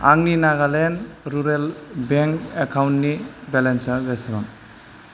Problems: constant background noise